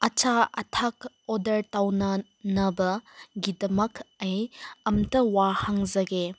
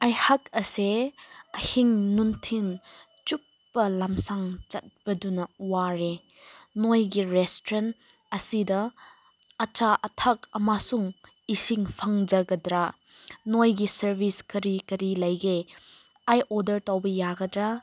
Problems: constant background noise